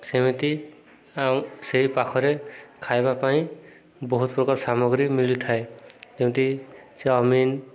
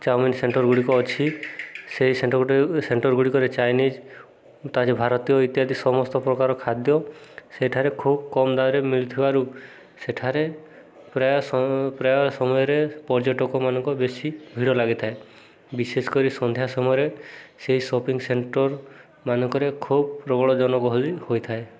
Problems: background conversations at intervals